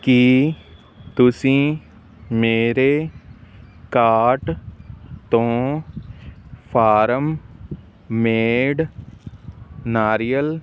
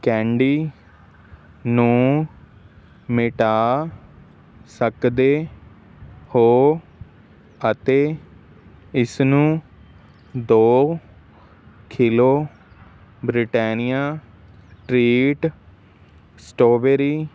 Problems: constant background noise